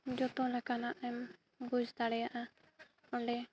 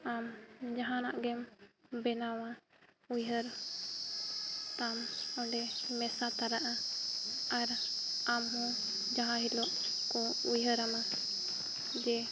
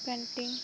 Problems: constant background noise